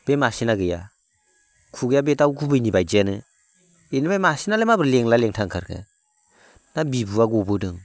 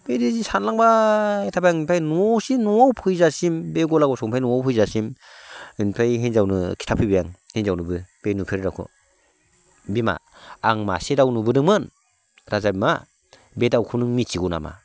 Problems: constant background noise